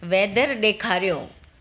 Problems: constant background noise, echo